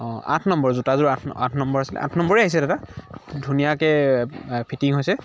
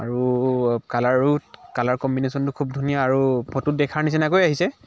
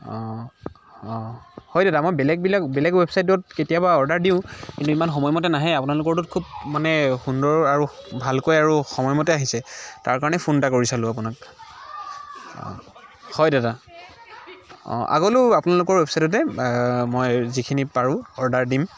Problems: continuous background conversations